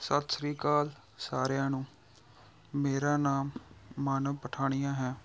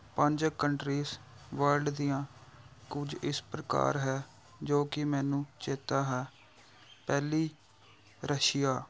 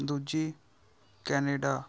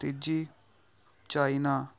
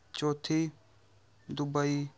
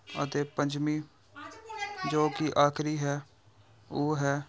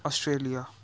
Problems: background sounds at intervals